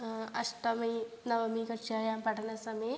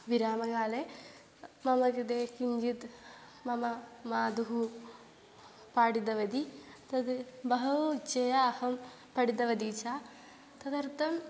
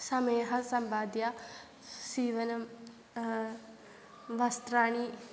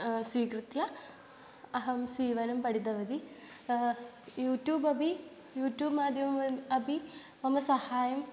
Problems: background sounds at intervals